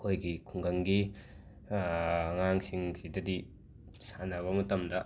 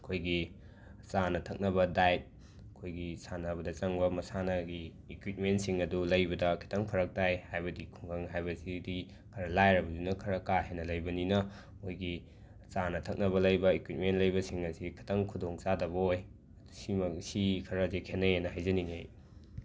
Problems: none marked